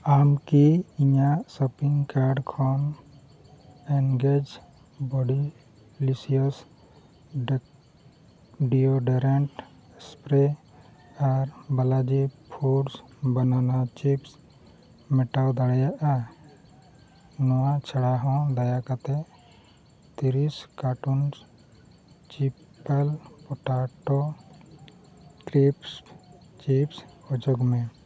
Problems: background sounds at intervals, low volume